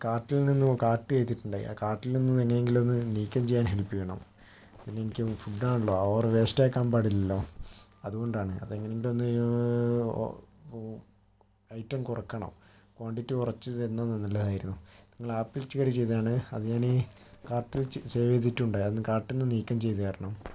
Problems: background sounds at intervals